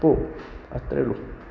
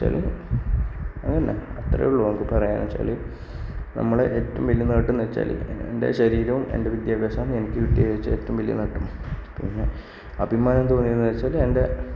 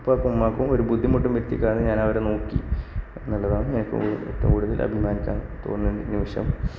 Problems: background sounds at intervals, low volume